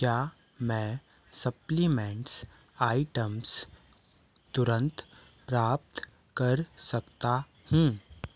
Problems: none marked